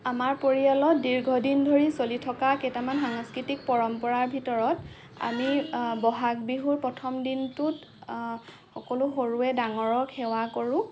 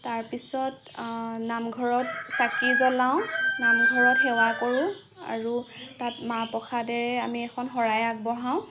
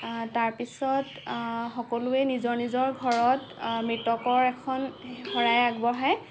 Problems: none marked